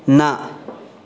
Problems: constant background noise